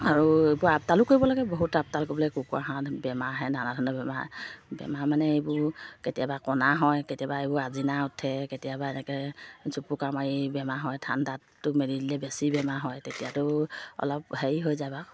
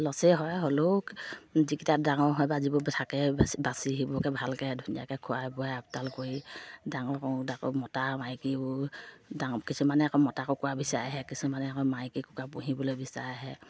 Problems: low volume